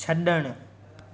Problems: constant background noise, echo